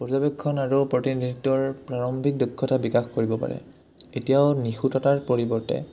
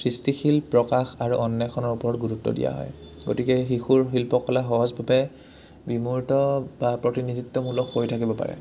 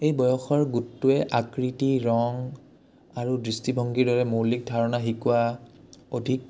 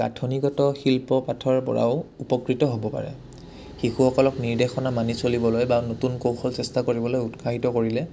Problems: low volume